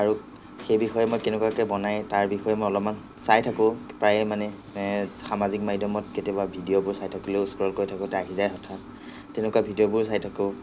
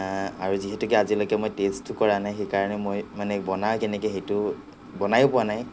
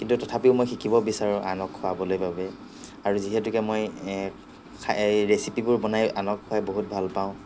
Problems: none marked